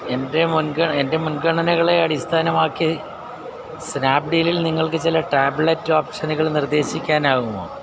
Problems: constant background noise